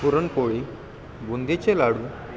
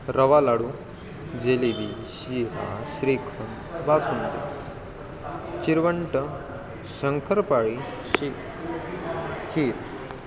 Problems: constant background noise, continuous background conversations